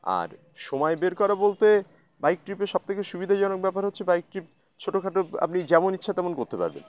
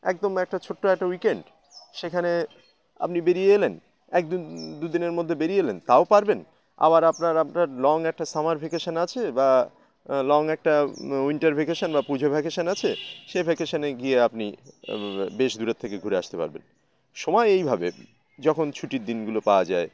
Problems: constant background noise, continuous background conversations